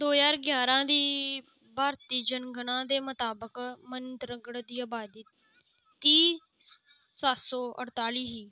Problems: background sounds at intervals